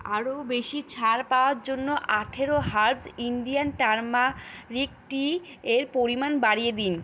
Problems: constant background noise